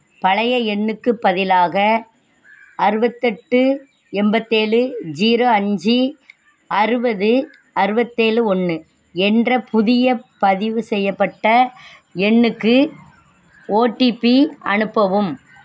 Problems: none marked